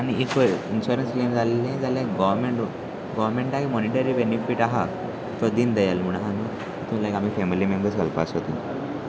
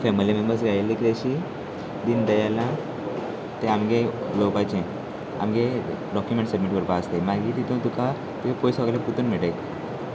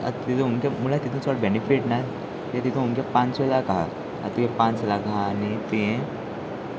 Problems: constant background noise, continuous background conversations